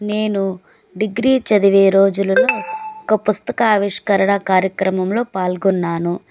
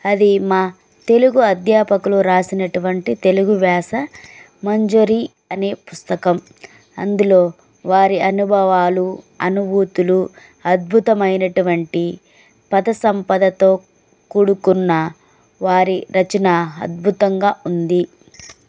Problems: none marked